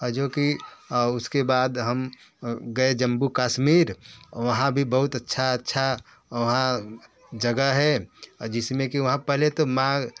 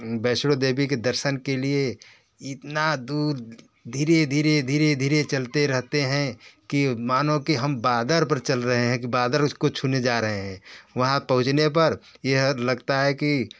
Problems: none marked